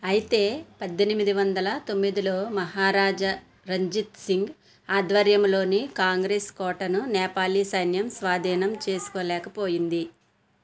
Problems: background sounds at intervals